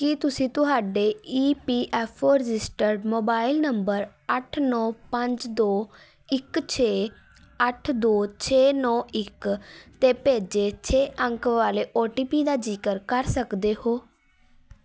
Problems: constant background noise